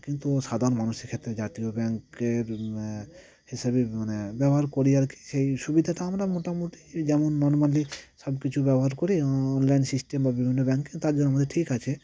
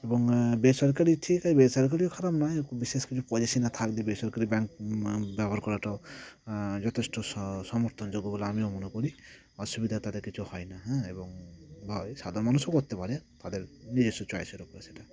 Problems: none marked